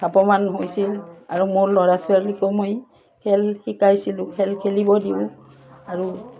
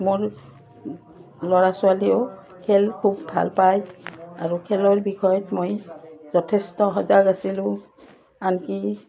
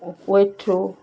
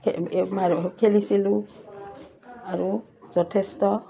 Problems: constant background noise